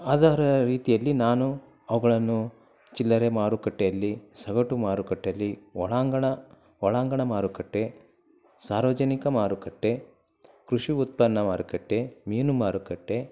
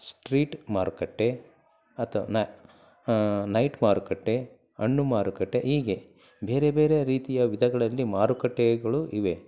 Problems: low volume